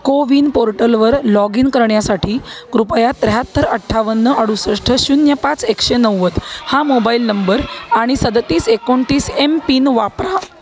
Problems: constant background noise, background conversations at intervals